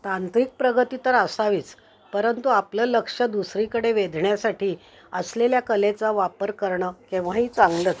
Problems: background sounds at intervals